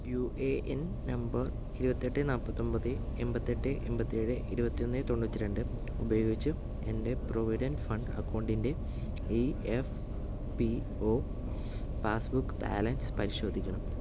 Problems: background sounds at intervals, low volume